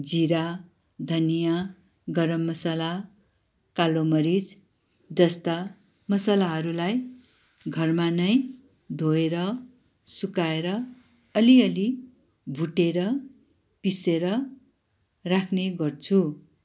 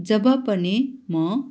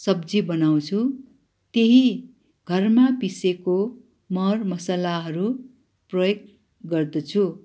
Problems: background sounds at intervals